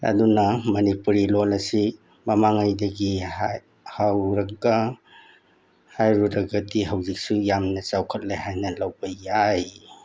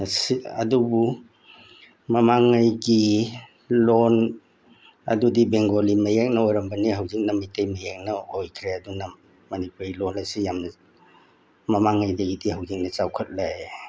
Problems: background sounds at intervals